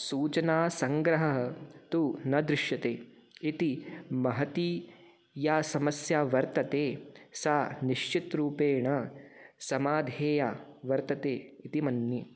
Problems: none marked